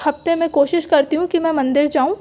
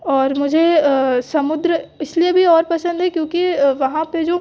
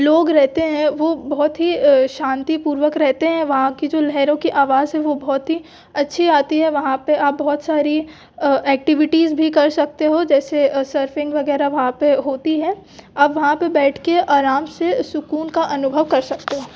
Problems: background sounds at intervals